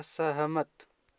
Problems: none marked